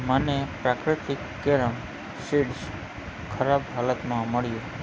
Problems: constant background noise